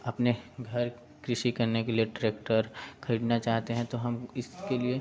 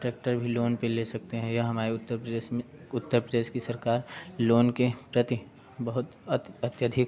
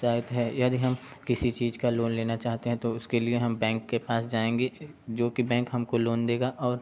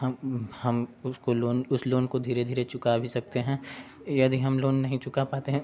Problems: background sounds at intervals, continuous background conversations